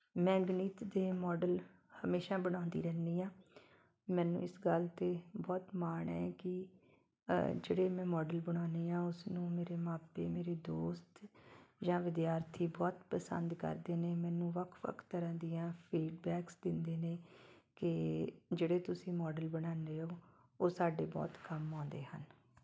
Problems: background sounds at intervals